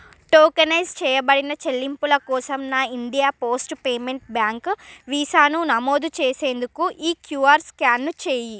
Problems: none marked